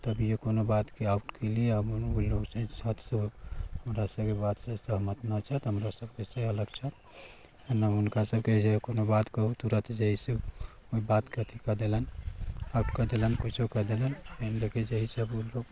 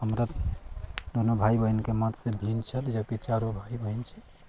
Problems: constant background noise, low volume